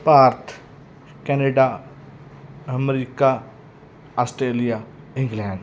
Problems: none marked